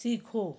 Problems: low volume